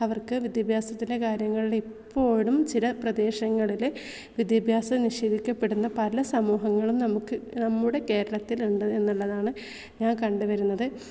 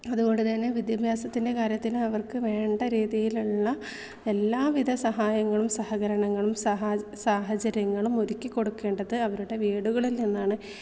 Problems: none marked